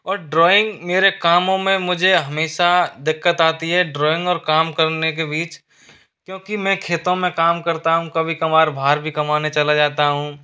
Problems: constant background noise